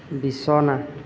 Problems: none marked